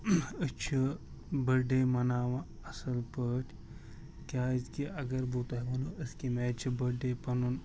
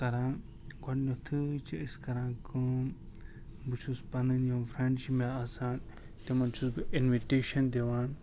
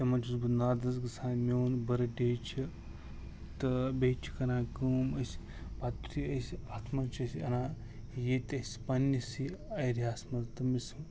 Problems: constant background noise